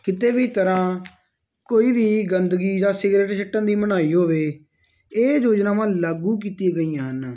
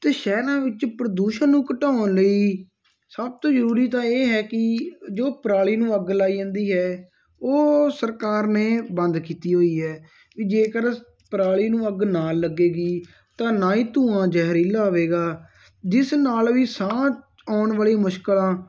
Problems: none marked